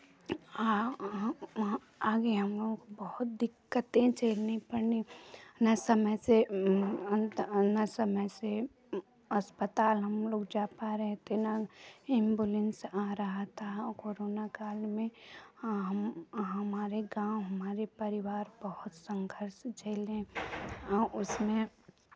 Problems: background sounds at intervals